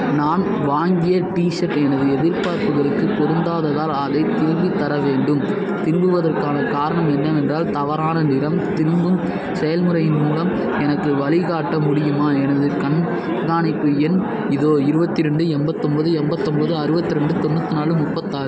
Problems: constant background noise